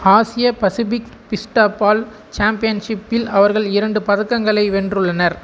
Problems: none marked